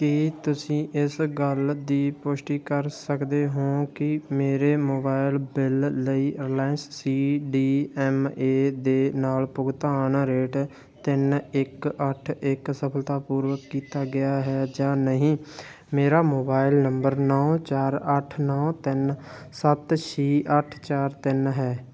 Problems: none marked